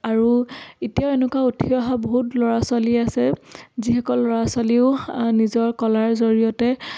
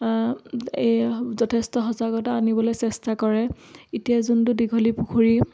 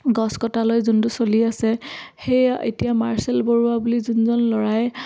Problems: none marked